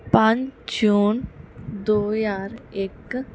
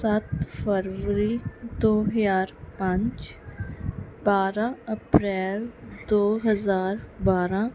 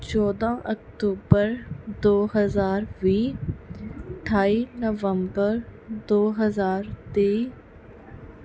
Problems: background sounds at intervals